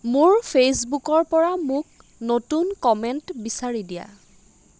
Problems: constant background noise